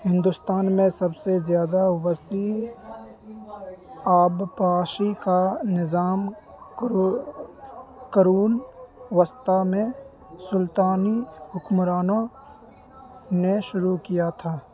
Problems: constant background noise